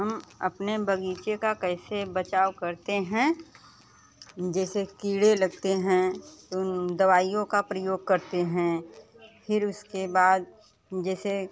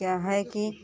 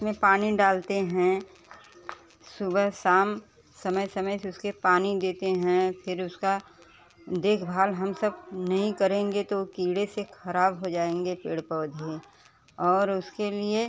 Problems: constant background noise, continuous background conversations